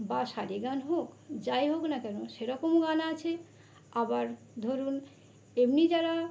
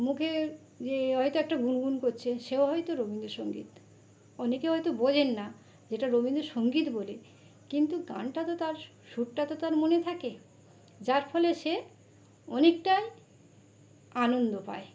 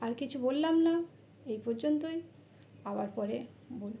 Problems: background sounds at intervals